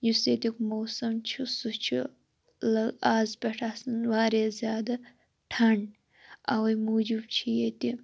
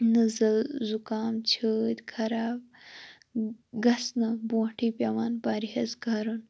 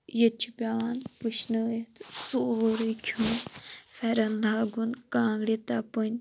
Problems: none marked